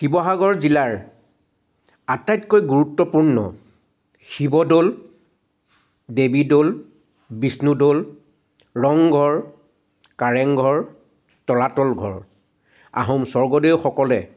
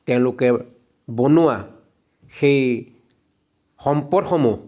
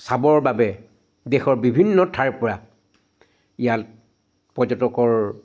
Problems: constant background noise